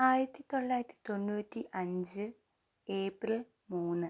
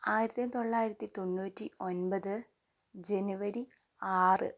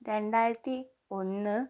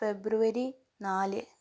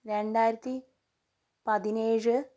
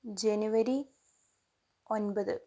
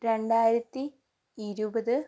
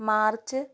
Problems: low volume